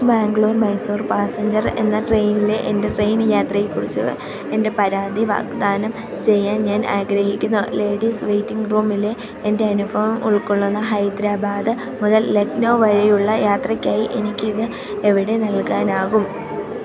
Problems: constant background noise